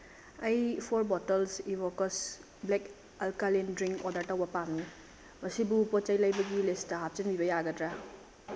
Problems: constant background noise, low volume